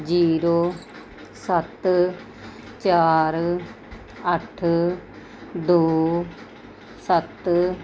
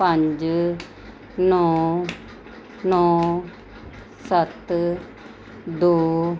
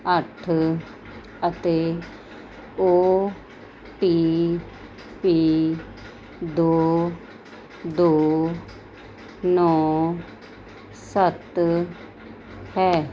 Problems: none marked